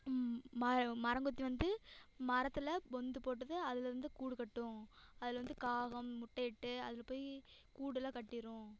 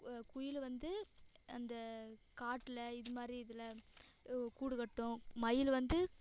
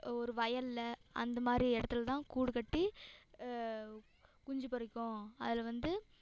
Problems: echo